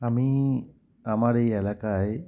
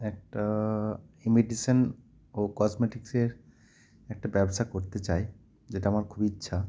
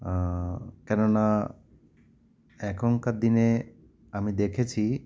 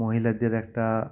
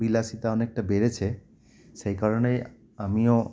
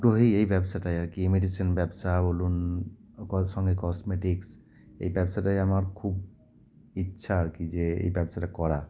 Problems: none marked